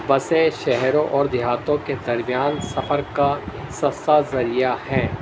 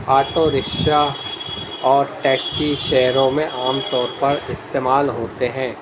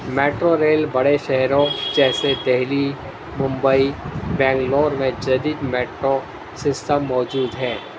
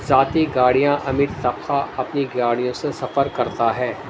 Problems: constant background noise, low volume